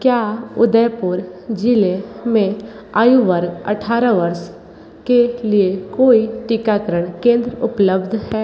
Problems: constant background noise, echo